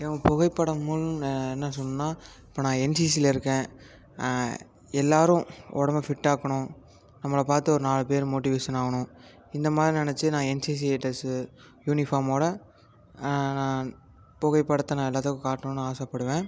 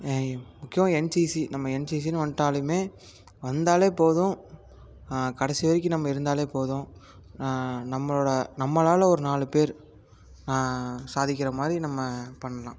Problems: background sounds at intervals